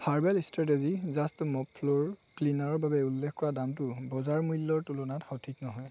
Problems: none marked